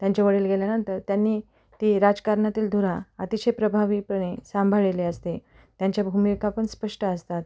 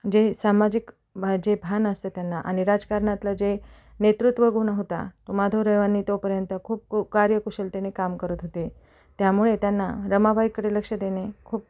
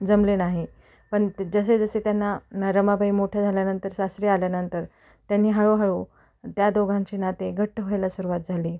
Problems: none marked